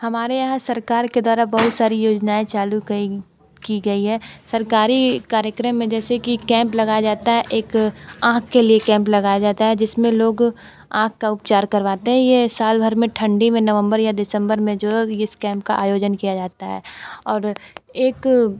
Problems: constant background noise